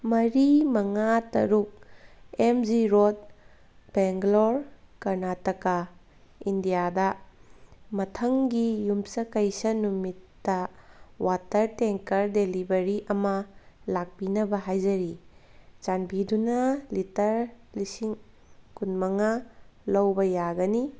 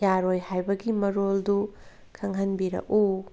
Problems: background sounds at intervals